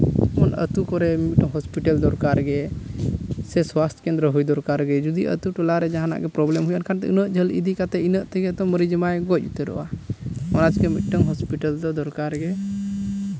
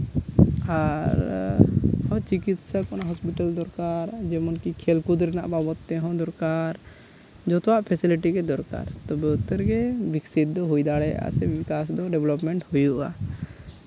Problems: constant background noise